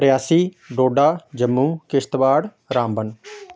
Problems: none marked